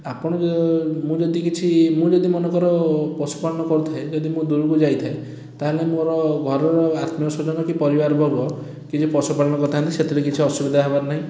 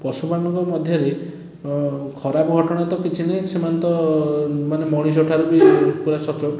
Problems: background sounds at intervals